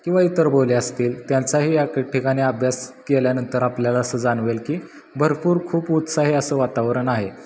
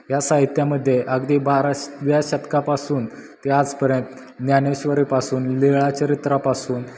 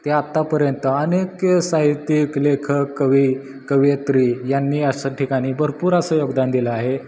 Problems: background sounds at intervals